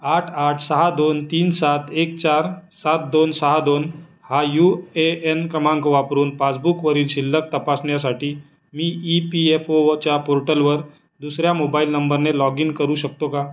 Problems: none marked